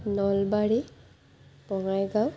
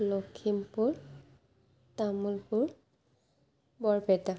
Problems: low volume